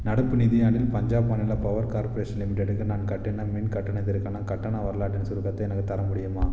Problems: constant background noise